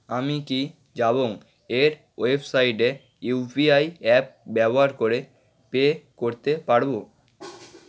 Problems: background sounds at intervals